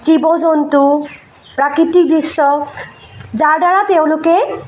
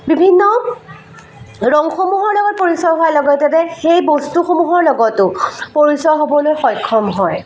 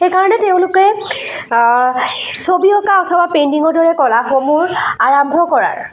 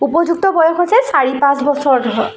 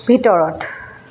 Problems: constant background noise, echo